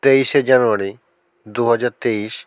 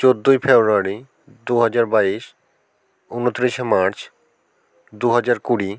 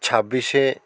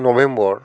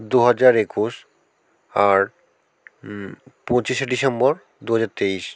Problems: none marked